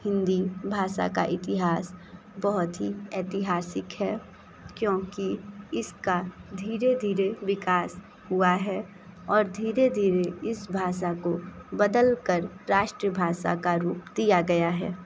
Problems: constant background noise